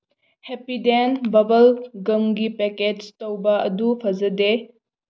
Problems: none marked